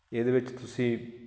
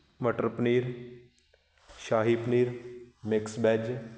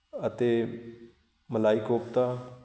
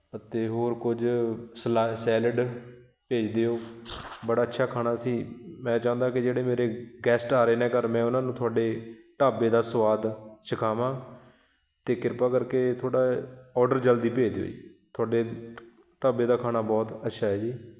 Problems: none marked